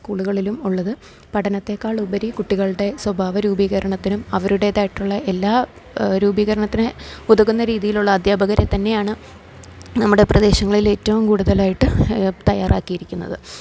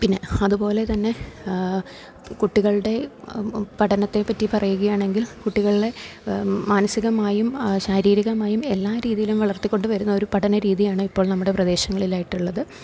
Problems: low volume